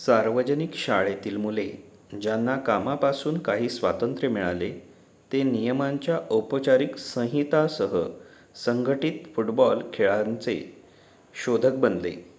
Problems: none marked